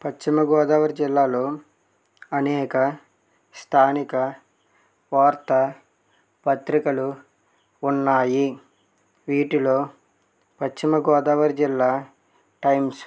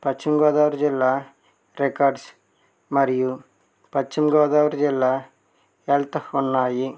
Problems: none marked